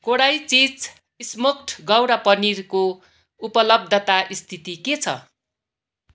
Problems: constant background noise